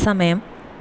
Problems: constant background noise